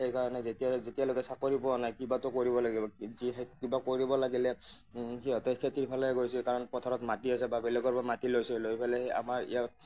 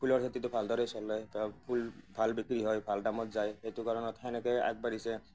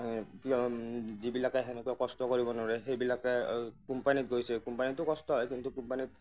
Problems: none marked